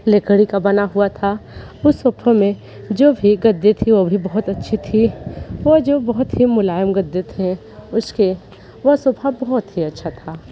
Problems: none marked